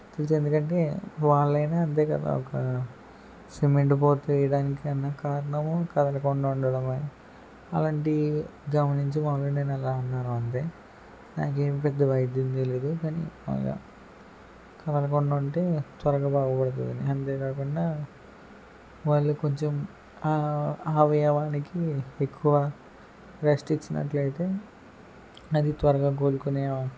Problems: none marked